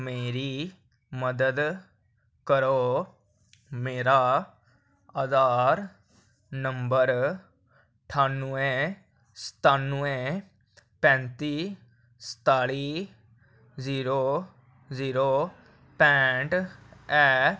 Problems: none marked